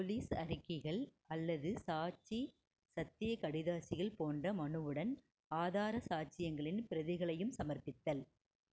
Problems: none marked